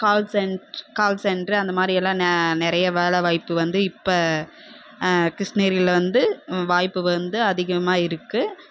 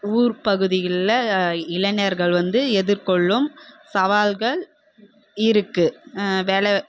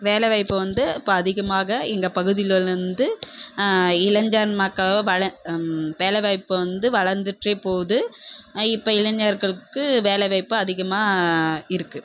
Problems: constant background noise